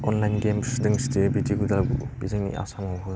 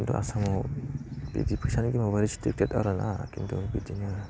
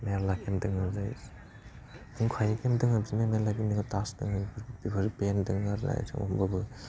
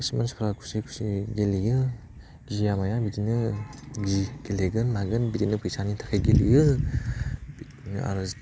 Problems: low volume